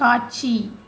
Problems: none marked